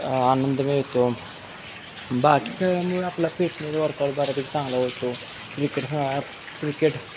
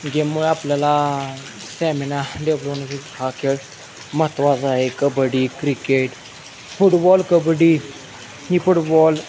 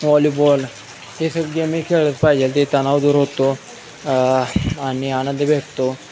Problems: constant background noise, background conversations at intervals